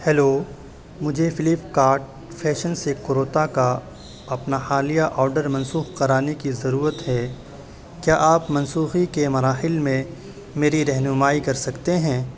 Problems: constant background noise